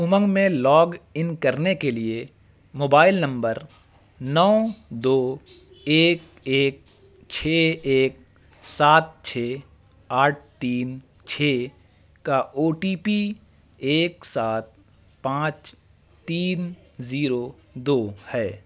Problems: constant background noise